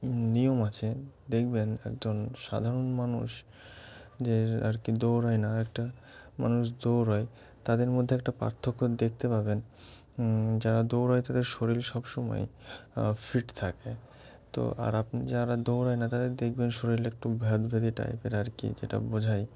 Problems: constant background noise, background conversations at intervals